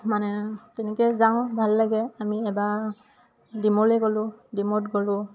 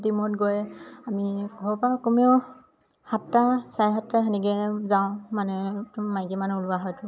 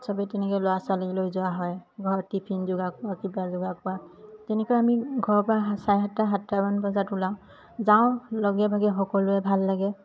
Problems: constant background noise